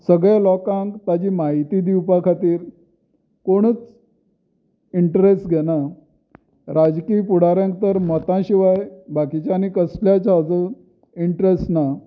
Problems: none marked